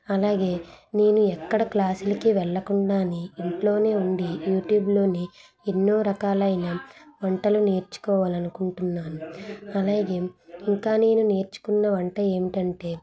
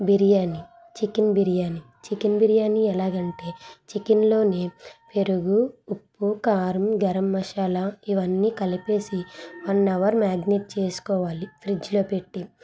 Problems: none marked